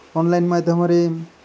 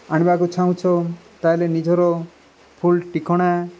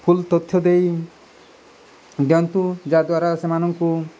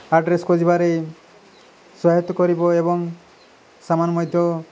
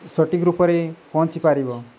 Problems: constant background noise